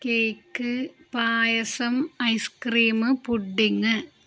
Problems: none marked